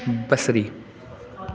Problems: constant background noise, echo